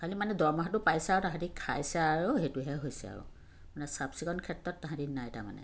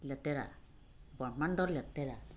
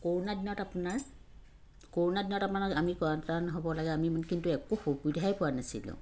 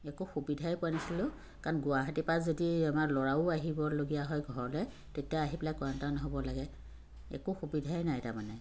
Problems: none marked